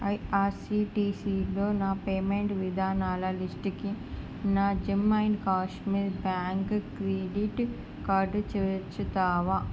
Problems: constant background noise